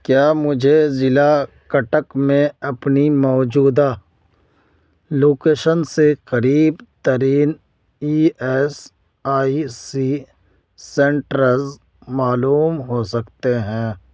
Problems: background sounds at intervals